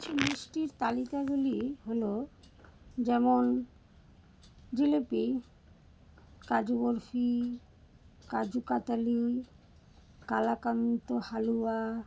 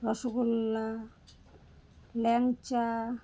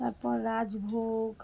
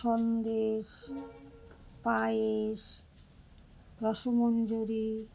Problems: constant background noise